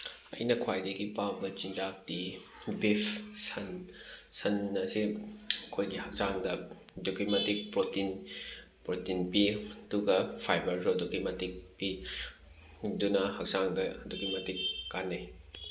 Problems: background sounds at intervals